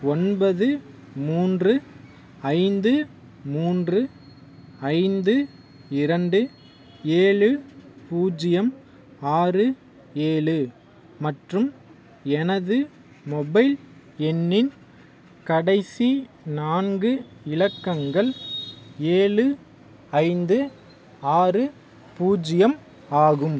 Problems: background sounds at intervals